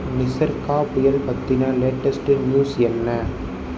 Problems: background sounds at intervals